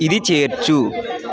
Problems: continuous background conversations